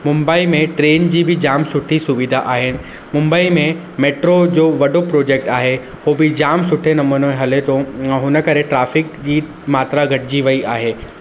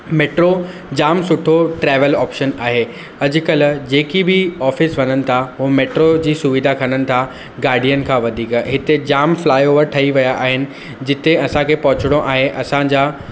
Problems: constant background noise